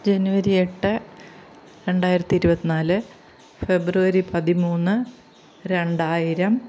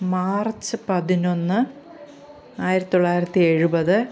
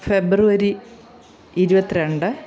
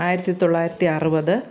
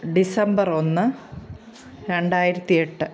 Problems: constant background noise, background conversations at intervals